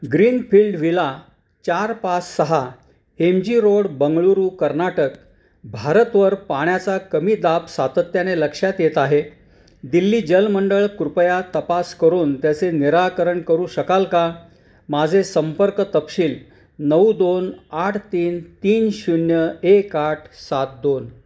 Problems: none marked